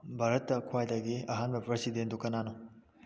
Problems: low volume